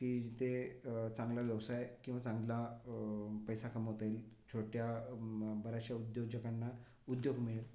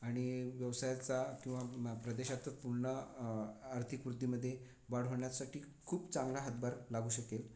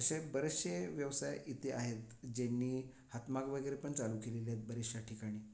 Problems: none marked